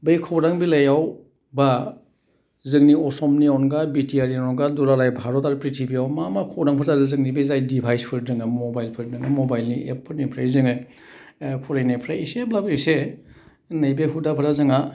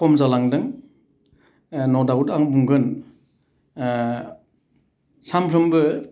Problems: none marked